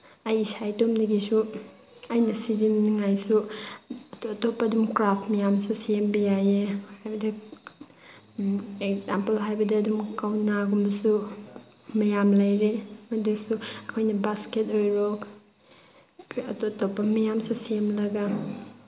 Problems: background sounds at intervals